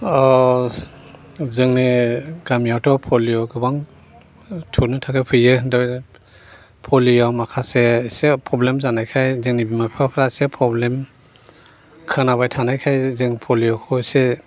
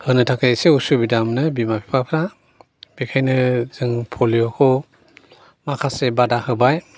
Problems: none marked